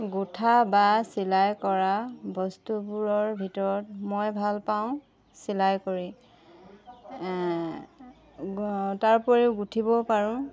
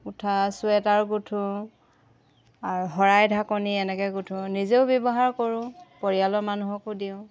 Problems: background sounds at intervals, background conversations at intervals